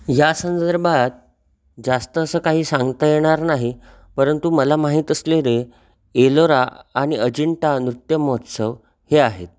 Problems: background sounds at intervals